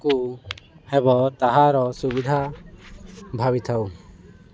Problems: constant background noise